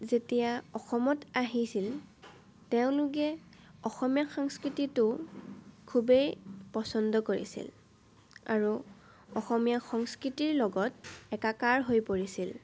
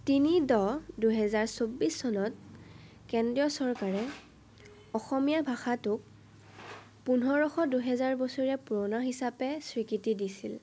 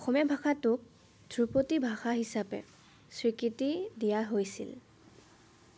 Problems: none marked